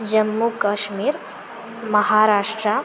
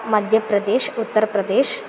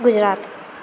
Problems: constant background noise